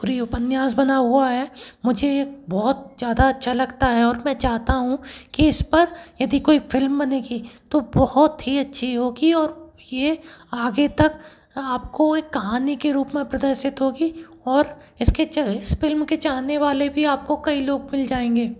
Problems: constant background noise